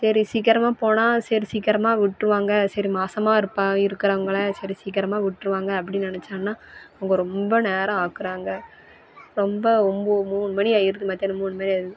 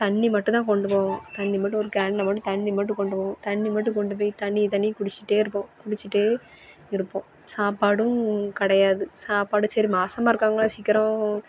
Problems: background conversations at intervals